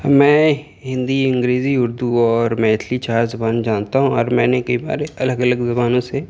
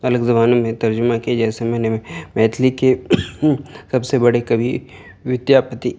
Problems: background sounds at intervals, background conversations at intervals